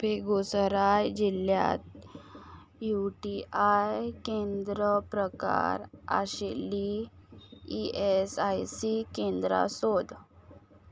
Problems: background sounds at intervals